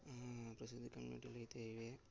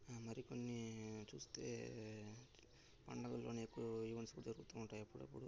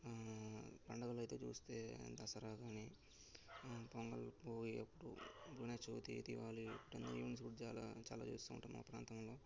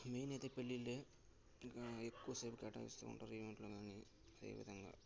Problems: background sounds at intervals, low volume